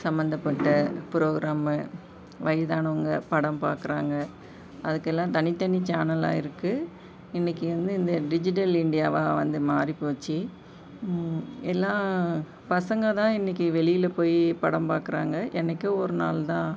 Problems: none marked